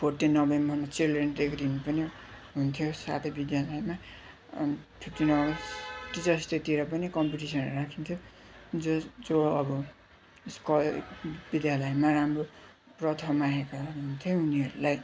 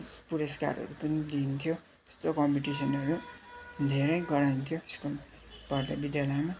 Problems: constant background noise